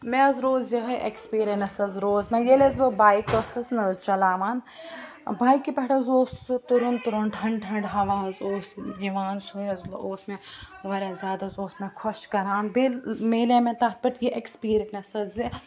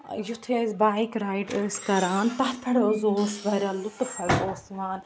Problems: background sounds at intervals